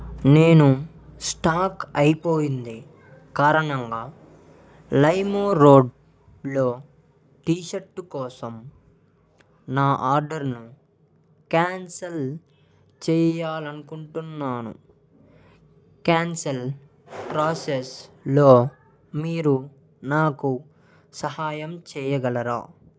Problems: background sounds at intervals